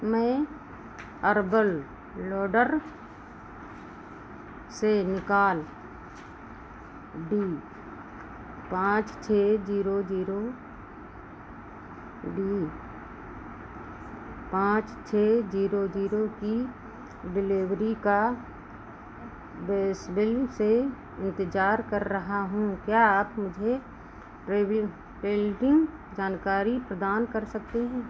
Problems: constant background noise